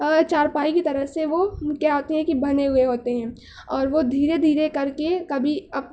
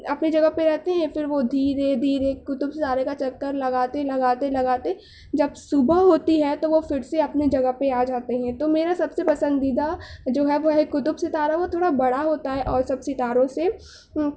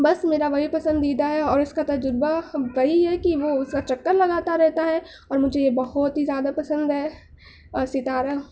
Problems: none marked